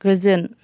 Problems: background conversations at intervals